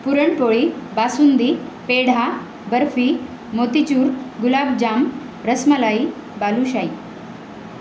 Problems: constant background noise